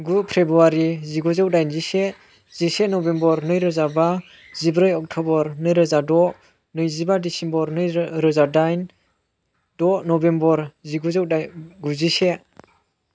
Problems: constant background noise